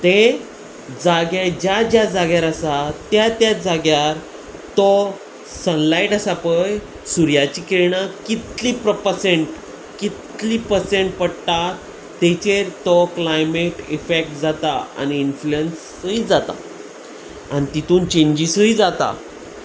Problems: constant background noise